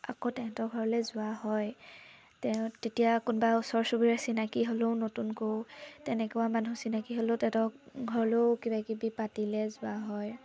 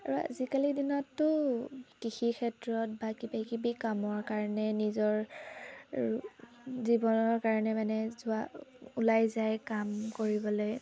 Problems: constant background noise